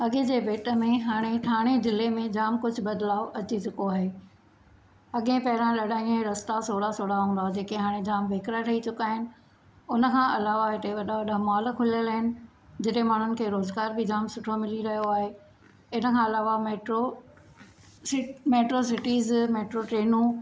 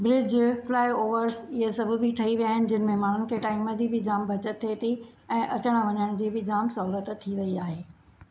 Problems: none marked